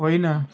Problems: constant background noise